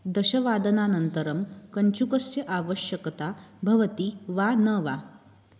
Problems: none marked